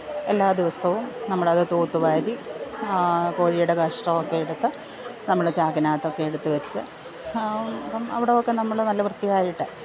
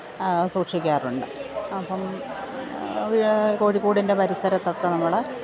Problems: background sounds at intervals